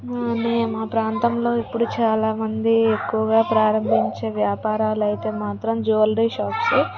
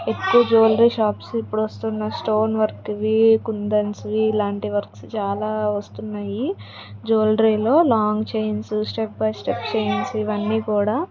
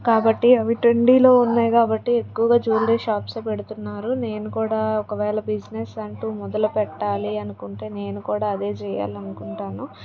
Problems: background conversations at intervals